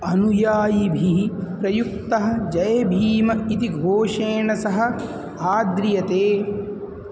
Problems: constant background noise